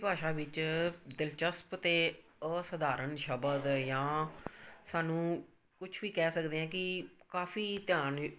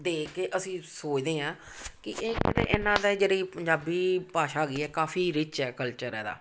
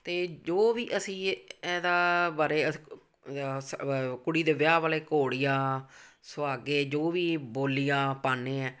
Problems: constant background noise